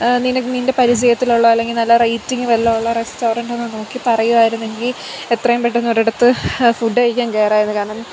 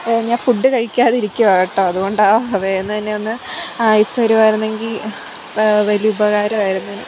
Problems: constant background noise